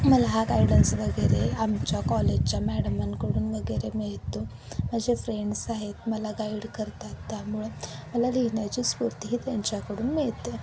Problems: constant background noise